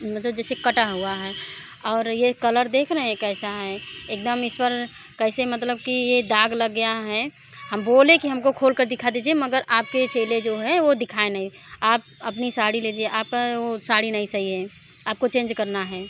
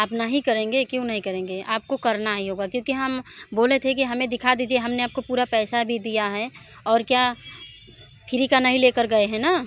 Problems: constant background noise